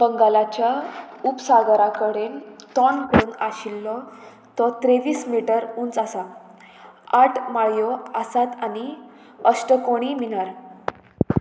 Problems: none marked